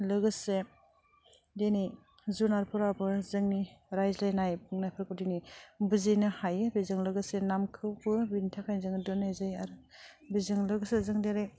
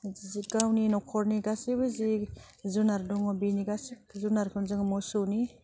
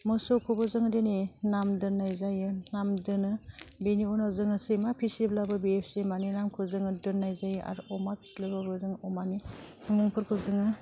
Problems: none marked